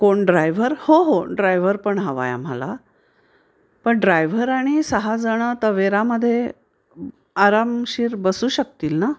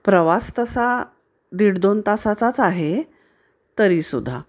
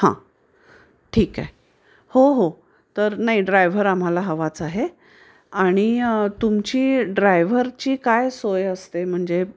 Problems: background sounds at intervals